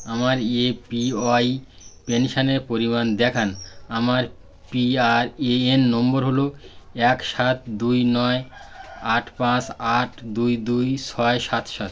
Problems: constant background noise